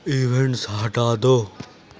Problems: none marked